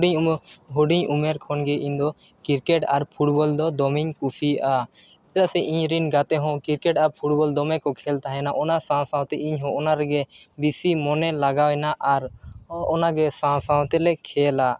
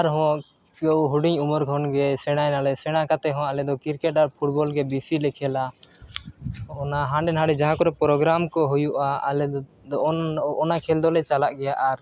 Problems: background sounds at intervals